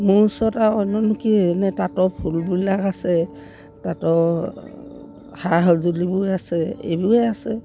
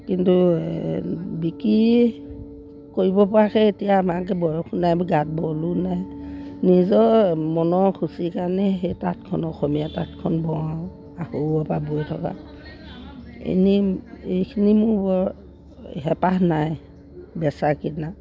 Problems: background sounds at intervals